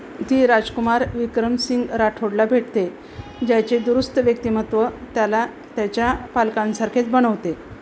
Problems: constant background noise